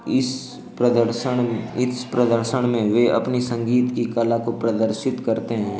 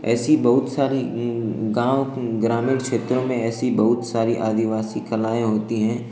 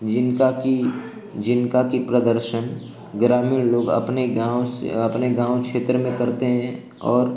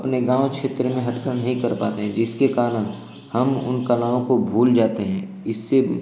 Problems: constant background noise